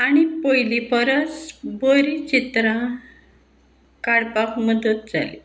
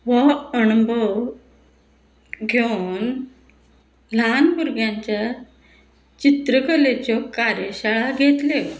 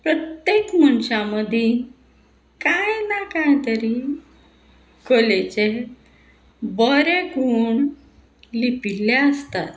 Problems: constant background noise